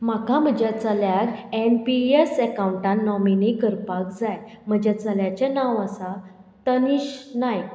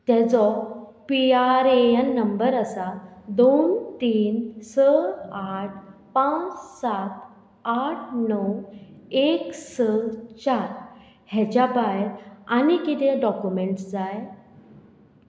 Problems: none marked